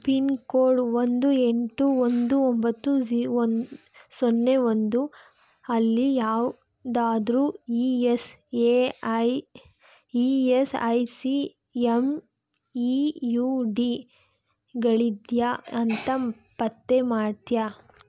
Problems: none marked